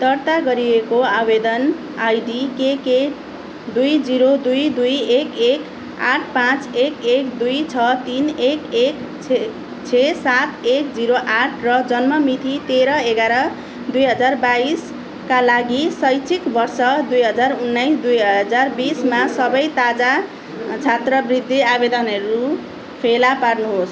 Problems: background sounds at intervals